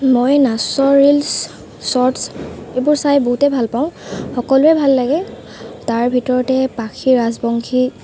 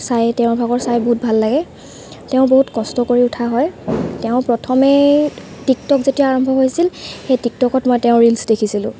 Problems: constant background noise